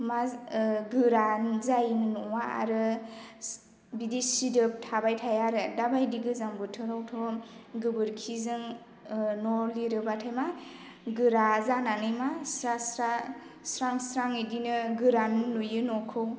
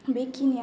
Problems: constant background noise